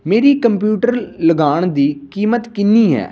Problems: none marked